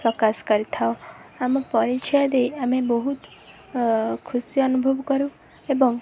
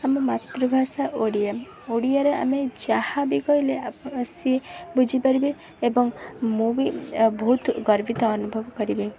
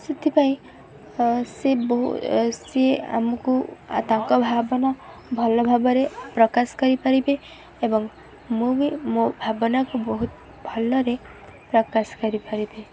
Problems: constant background noise